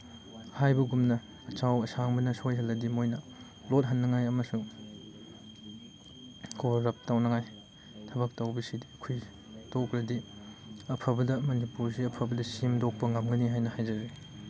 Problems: background sounds at intervals